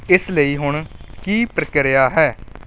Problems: background sounds at intervals